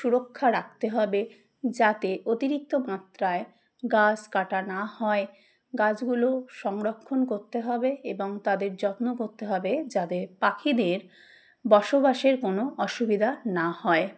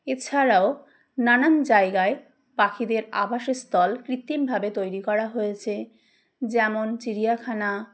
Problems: background sounds at intervals